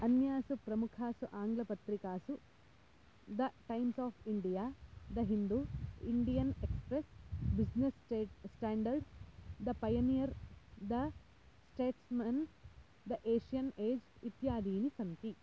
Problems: low volume